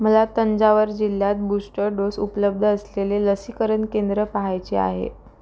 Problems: none marked